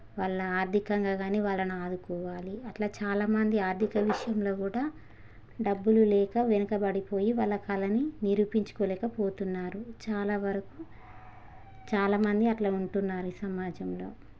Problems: none marked